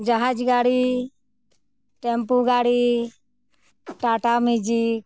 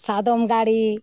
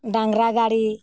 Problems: background sounds at intervals